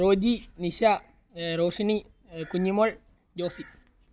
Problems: constant background noise, low volume